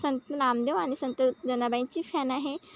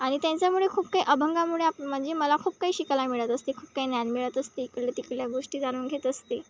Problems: none marked